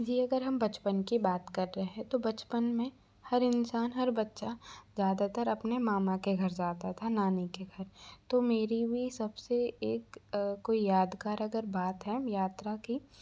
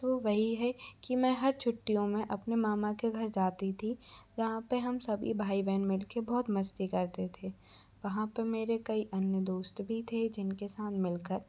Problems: background sounds at intervals